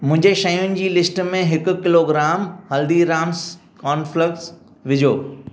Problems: none marked